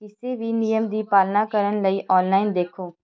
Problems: background conversations at intervals